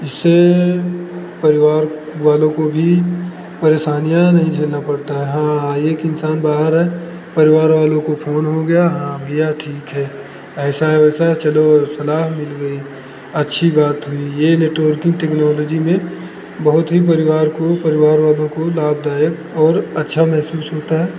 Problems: background conversations at intervals